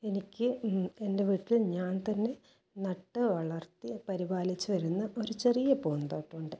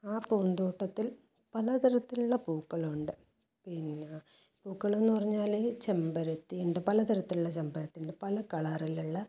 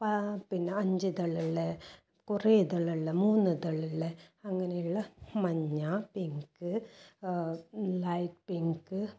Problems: none marked